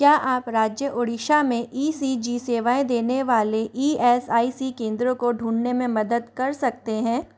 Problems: constant background noise